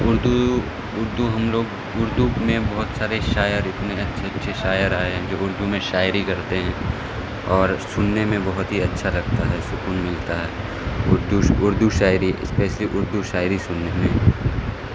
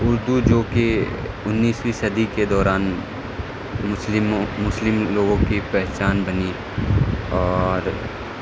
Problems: constant background noise